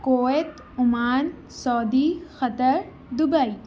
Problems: constant background noise, continuous background conversations